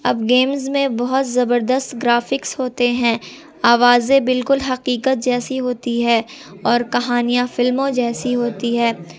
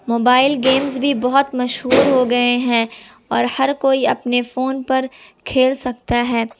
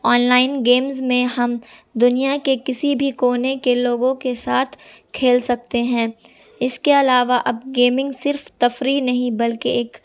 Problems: constant background noise